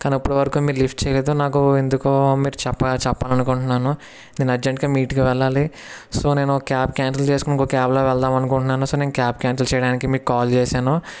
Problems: background sounds at intervals